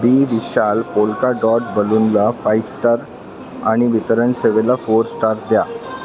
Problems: constant background noise, continuous background conversations